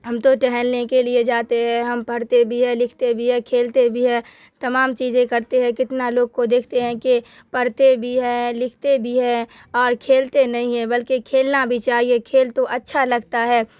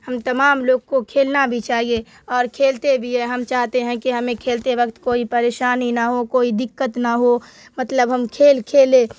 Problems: constant background noise